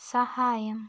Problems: background sounds at intervals, low volume